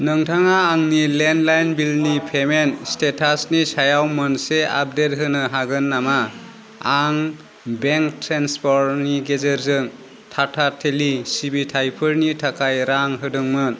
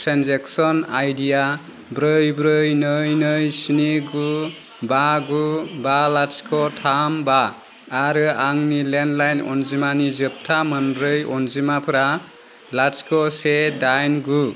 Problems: constant background noise